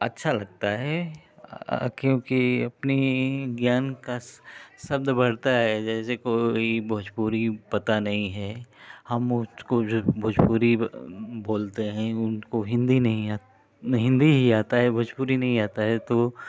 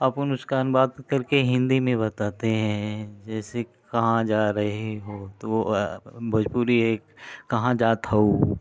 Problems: none marked